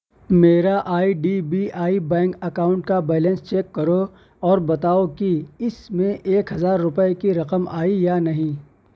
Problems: none marked